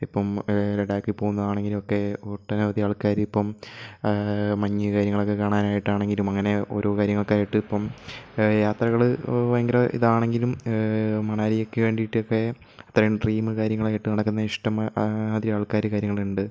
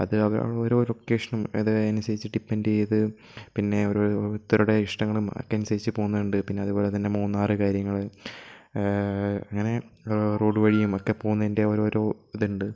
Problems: none marked